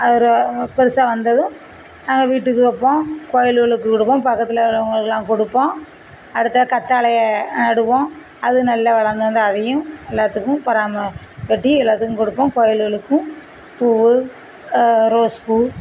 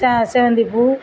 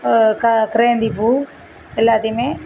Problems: none marked